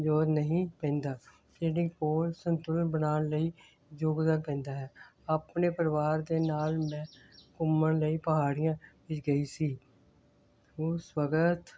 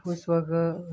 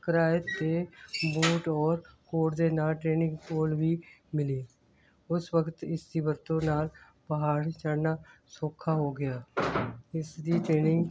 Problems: constant background noise